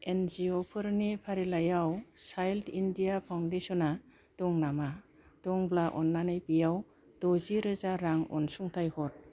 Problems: low volume